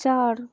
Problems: none marked